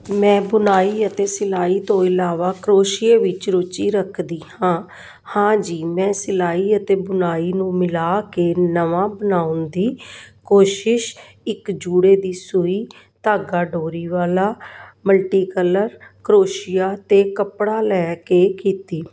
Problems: none marked